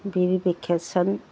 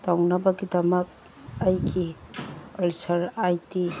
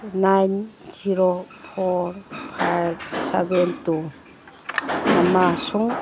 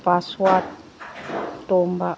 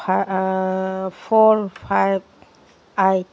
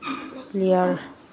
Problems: background sounds at intervals, background conversations at intervals